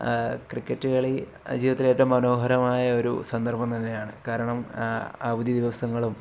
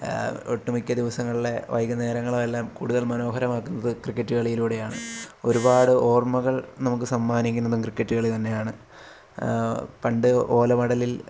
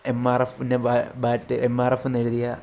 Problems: none marked